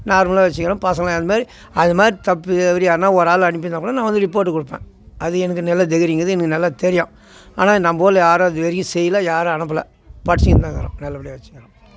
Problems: constant background noise